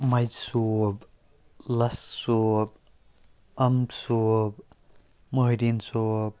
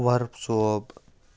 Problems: background sounds at intervals